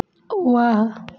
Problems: background sounds at intervals